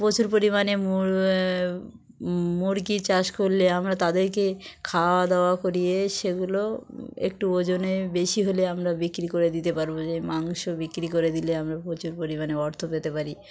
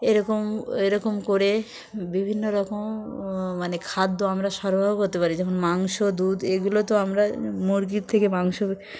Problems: none marked